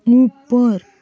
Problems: constant background noise, background conversations at intervals